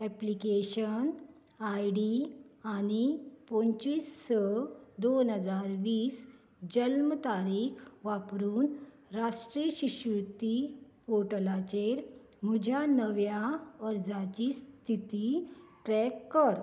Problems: none marked